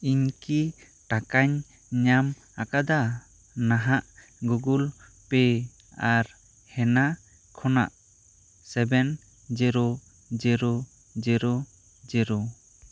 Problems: constant background noise